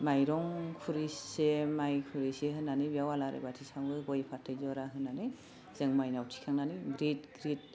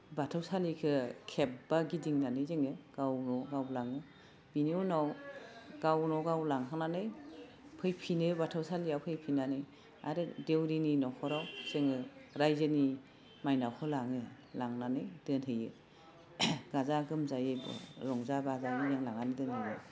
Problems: none marked